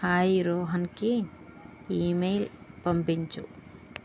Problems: constant background noise